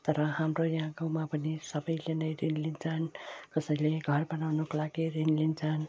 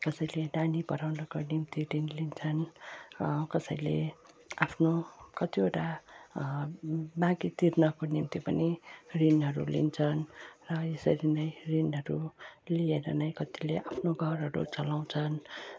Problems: low volume